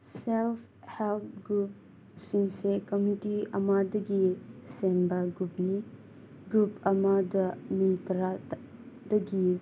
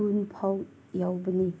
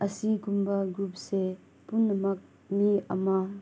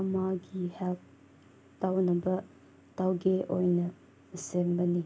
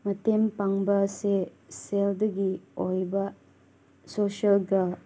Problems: background sounds at intervals